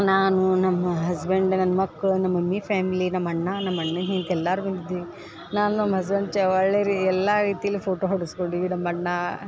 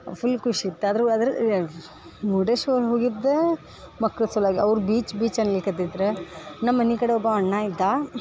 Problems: none marked